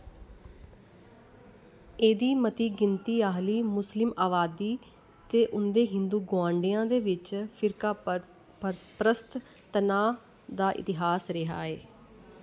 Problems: constant background noise